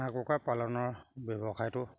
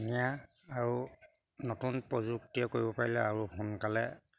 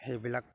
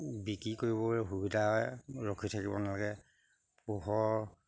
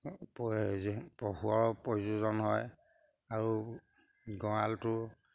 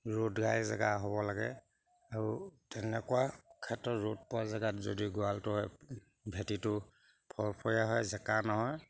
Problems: background sounds at intervals